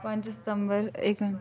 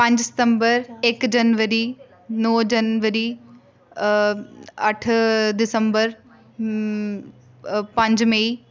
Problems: background conversations at intervals